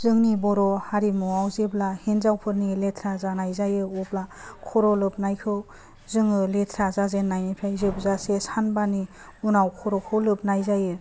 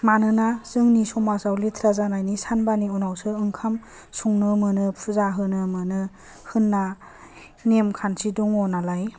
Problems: low volume